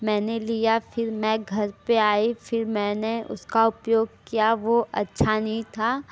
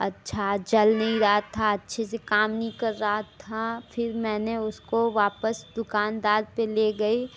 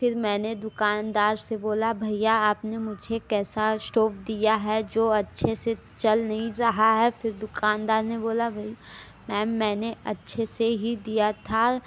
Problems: none marked